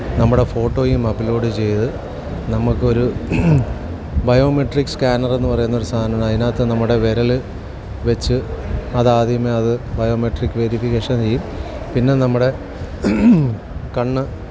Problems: constant background noise